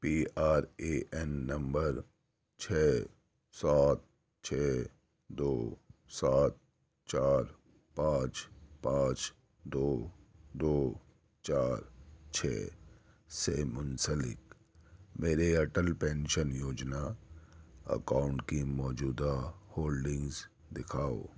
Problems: none marked